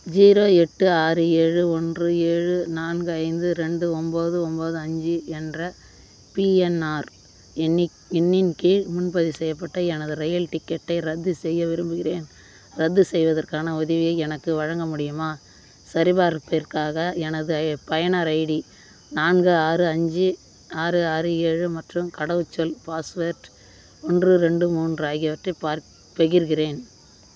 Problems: constant background noise